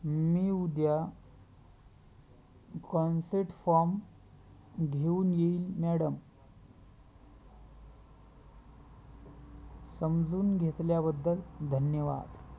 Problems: background sounds at intervals